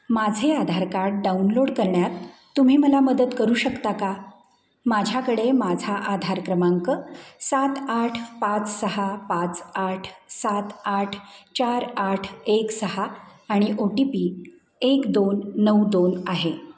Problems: background sounds at intervals